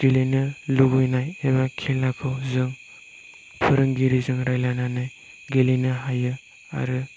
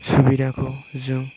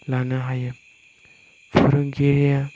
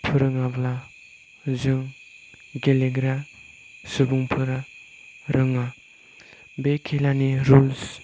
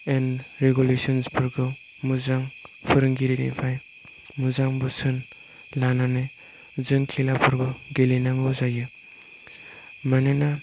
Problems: background sounds at intervals